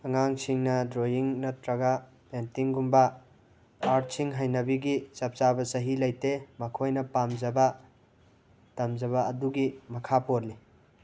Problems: background sounds at intervals